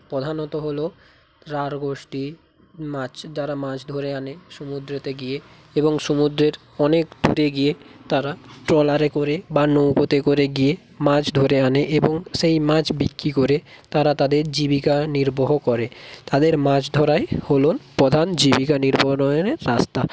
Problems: none marked